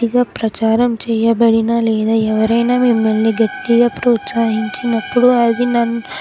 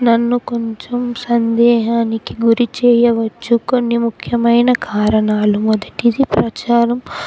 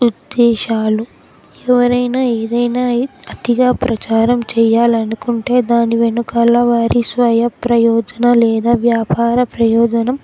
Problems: constant background noise, background conversations at intervals